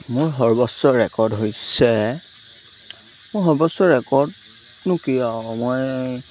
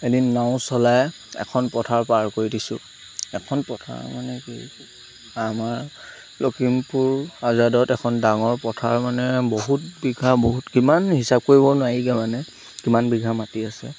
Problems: constant background noise